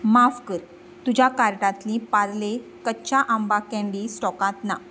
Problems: background sounds at intervals